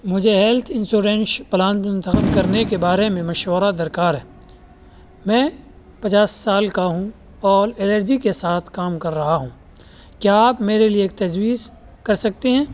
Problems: constant background noise